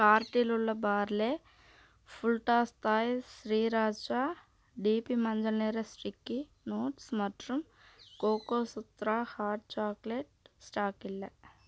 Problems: low volume